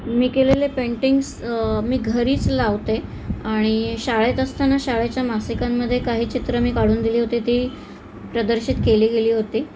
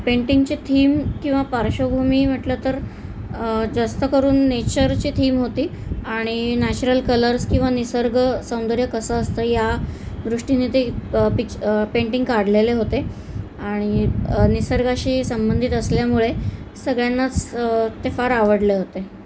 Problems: constant background noise